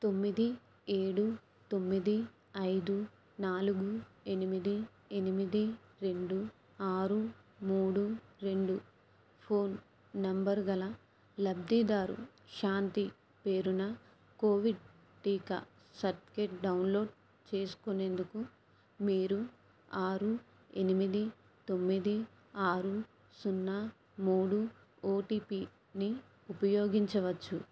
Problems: low volume